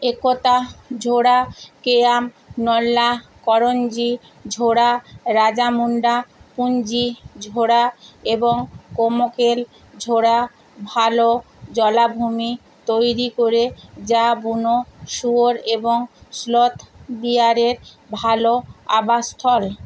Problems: constant background noise